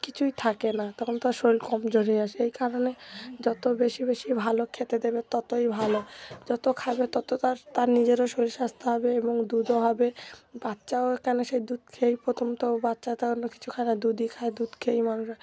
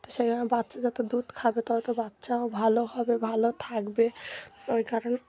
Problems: background sounds at intervals